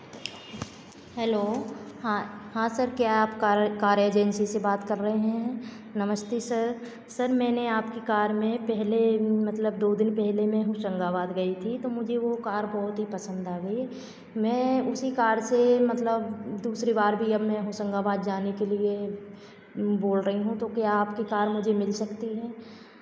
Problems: constant background noise